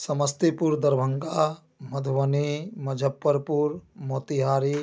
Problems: none marked